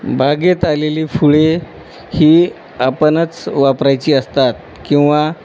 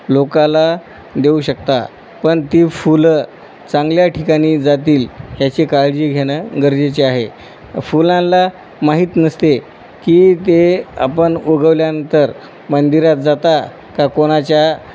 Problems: none marked